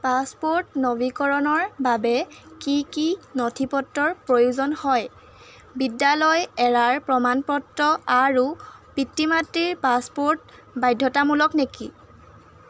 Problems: background sounds at intervals